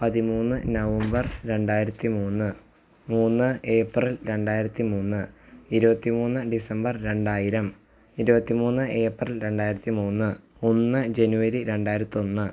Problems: low volume